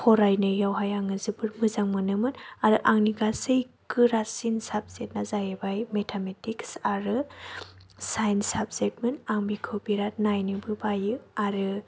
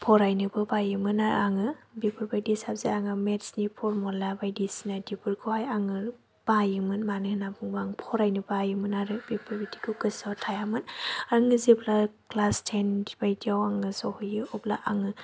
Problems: none marked